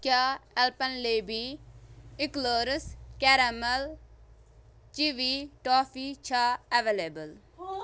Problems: none marked